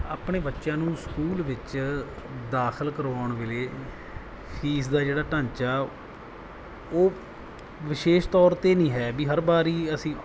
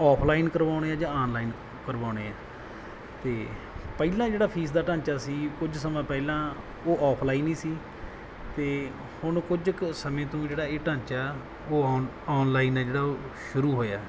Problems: background sounds at intervals